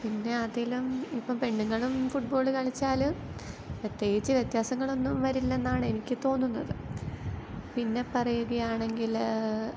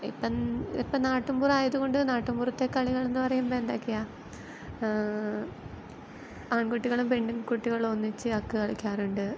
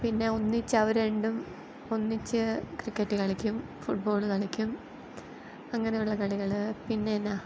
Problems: background sounds at intervals